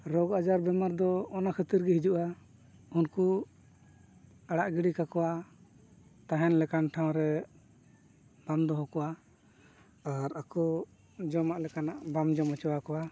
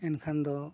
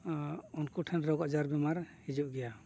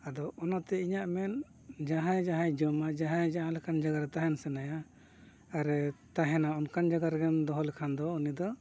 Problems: background sounds at intervals, low volume